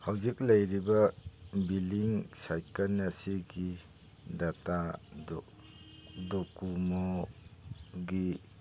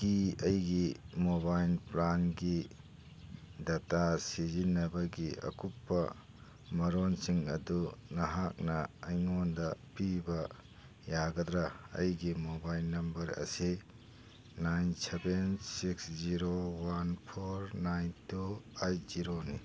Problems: background sounds at intervals